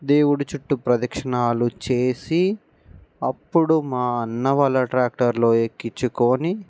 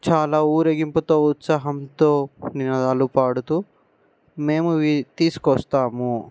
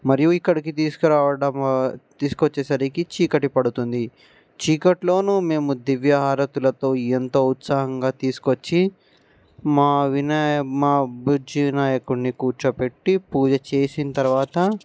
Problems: background sounds at intervals